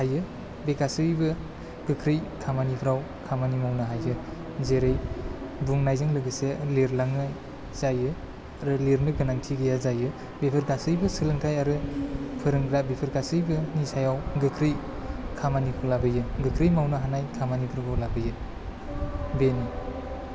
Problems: none marked